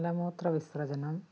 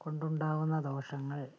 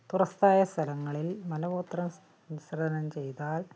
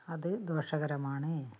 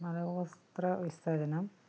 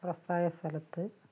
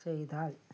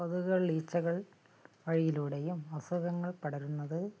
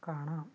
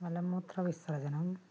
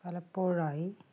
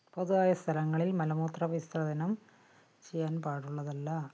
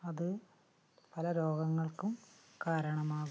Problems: low volume